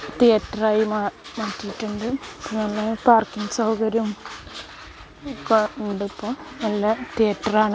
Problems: constant background noise